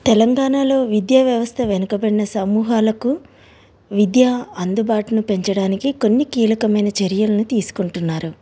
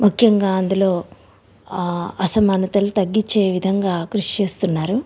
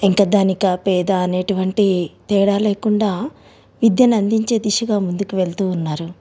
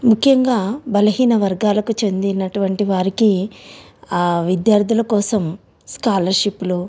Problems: background sounds at intervals